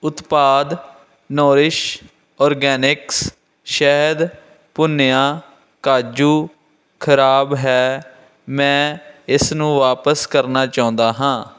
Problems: constant background noise